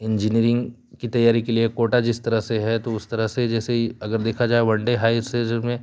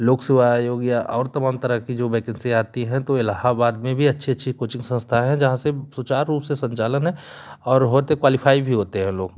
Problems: constant background noise